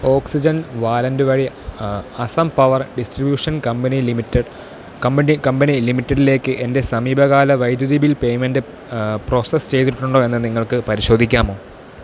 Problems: constant background noise